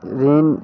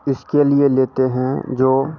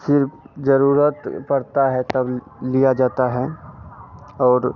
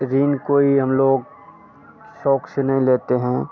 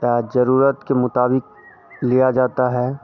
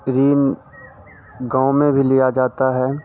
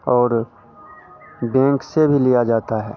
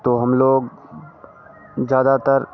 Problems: constant background noise